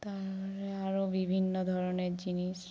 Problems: background sounds at intervals